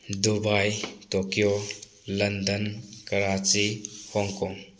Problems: background sounds at intervals